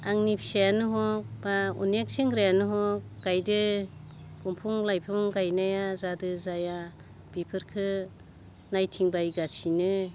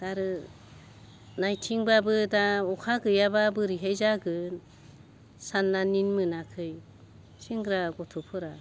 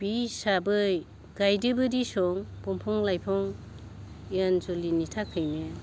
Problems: none marked